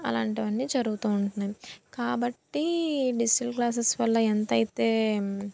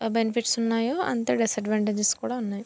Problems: none marked